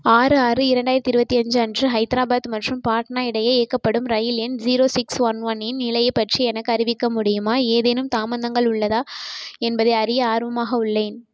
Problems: constant background noise